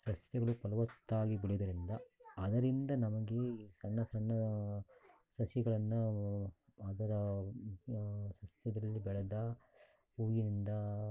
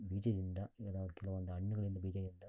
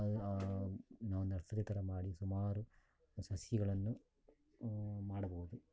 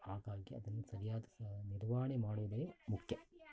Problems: background sounds at intervals